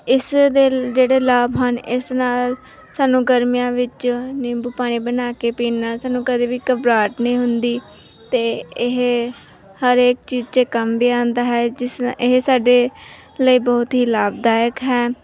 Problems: background sounds at intervals